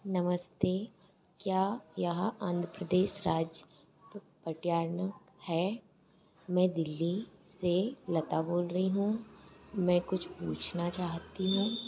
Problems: constant background noise